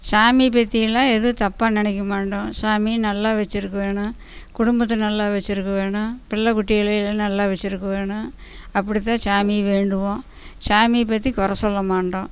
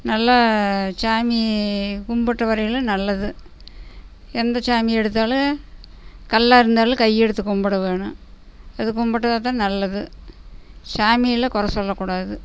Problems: background sounds at intervals, background conversations at intervals